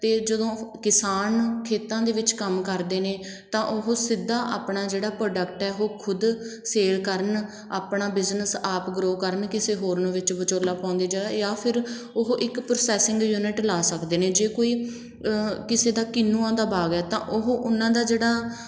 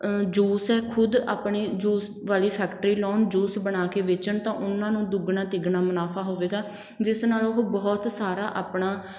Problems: background sounds at intervals